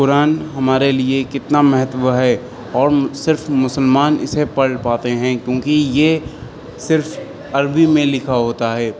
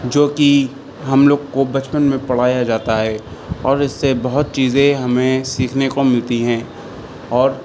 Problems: constant background noise